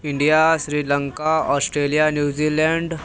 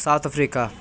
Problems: constant background noise, continuous background conversations